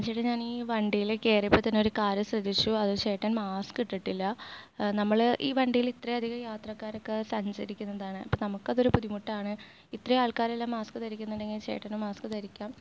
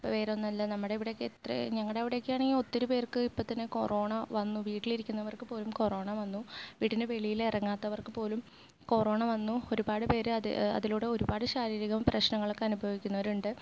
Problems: low volume